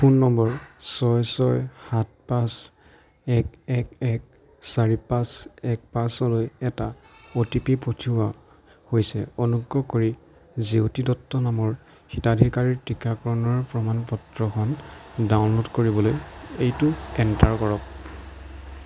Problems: background sounds at intervals